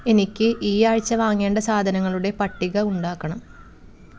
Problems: background sounds at intervals